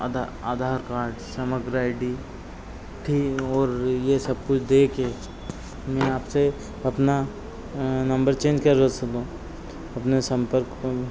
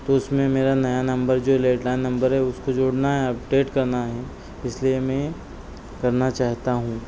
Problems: constant background noise